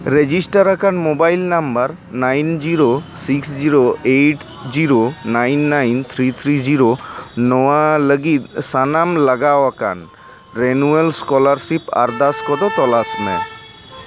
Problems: constant background noise